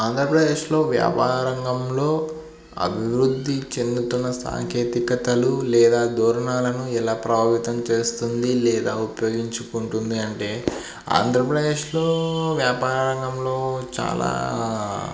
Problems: none marked